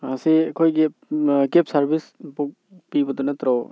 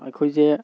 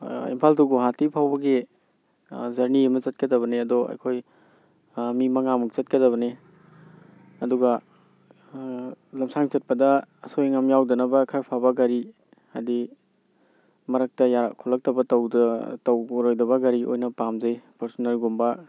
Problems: background sounds at intervals